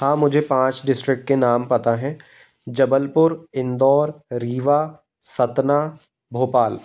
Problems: constant background noise